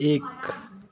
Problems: continuous background conversations